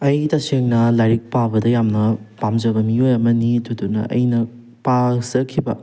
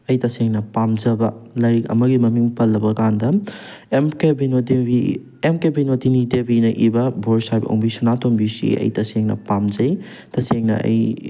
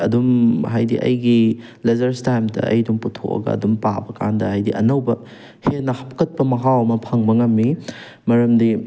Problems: none marked